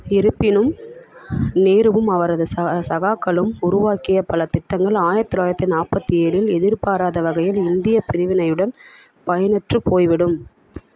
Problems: none marked